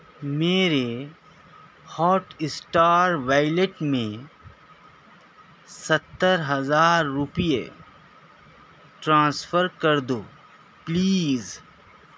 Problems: none marked